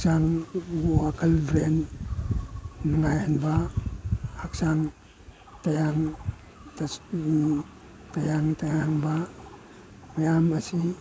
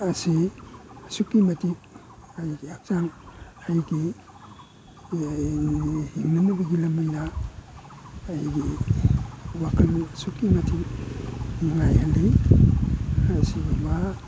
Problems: background sounds at intervals